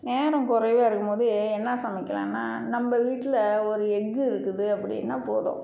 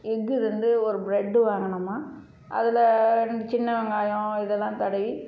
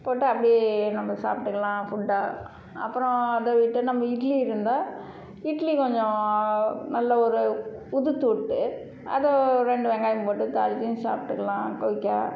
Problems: none marked